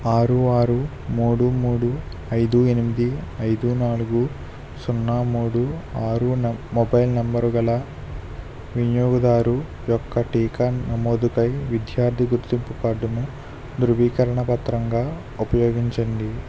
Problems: constant background noise